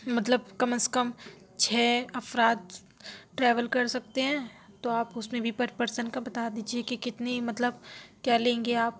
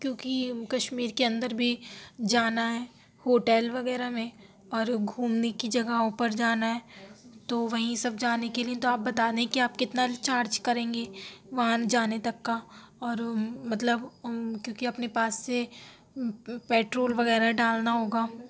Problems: none marked